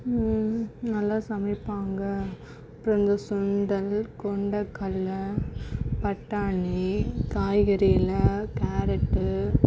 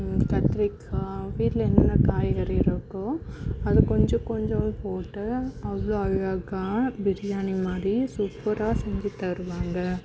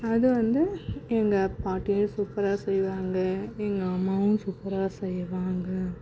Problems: background sounds at intervals